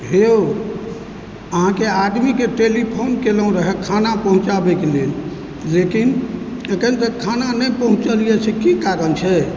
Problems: background sounds at intervals